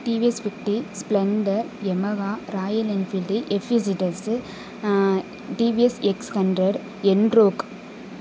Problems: constant background noise